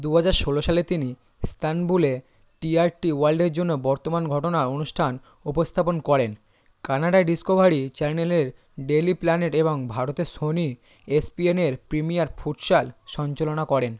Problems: none marked